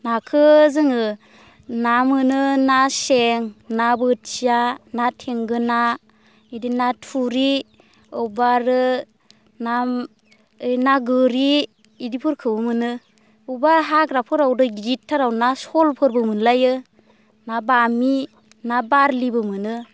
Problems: constant background noise